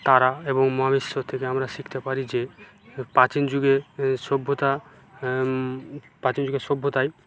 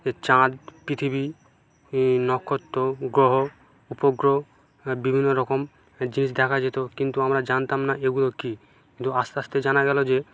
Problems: constant background noise